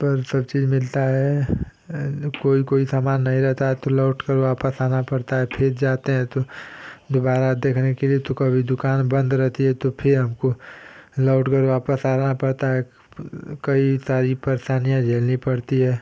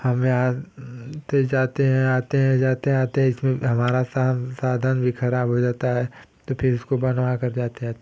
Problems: constant background noise